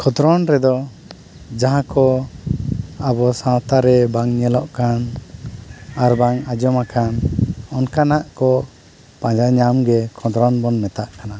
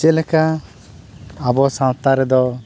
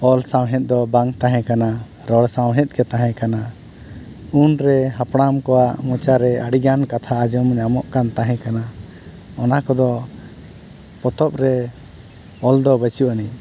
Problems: constant background noise